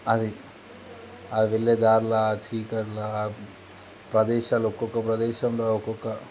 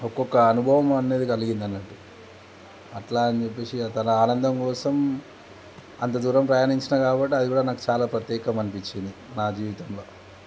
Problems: constant background noise